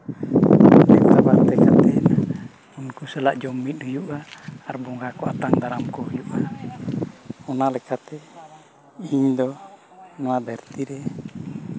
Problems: constant background noise